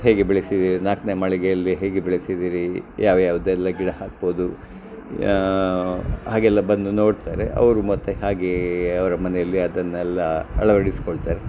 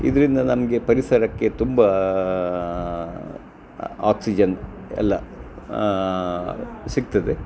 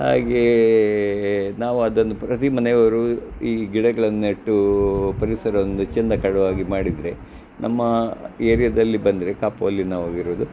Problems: none marked